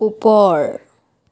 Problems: none marked